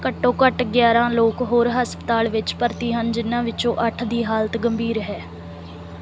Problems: background sounds at intervals